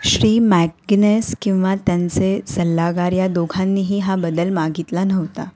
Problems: none marked